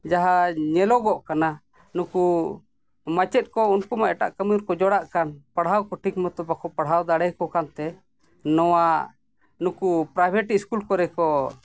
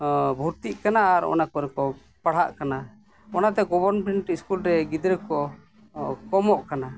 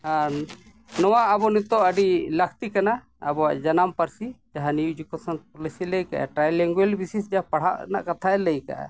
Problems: background sounds at intervals